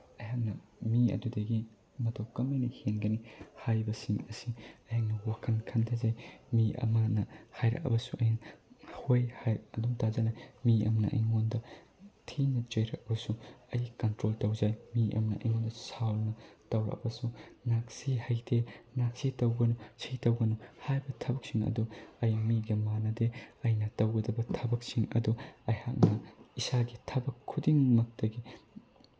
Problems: background sounds at intervals